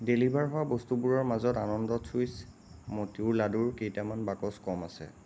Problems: constant background noise